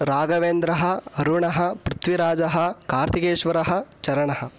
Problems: none marked